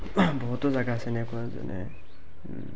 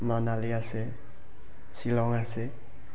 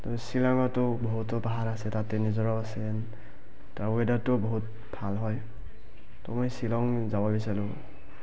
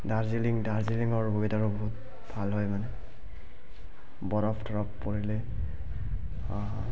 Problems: background sounds at intervals, continuous background conversations, low volume